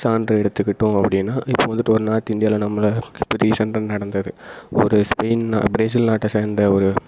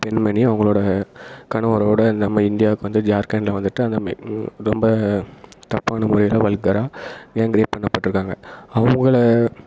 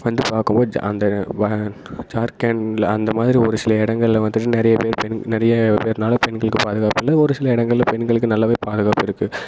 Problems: echo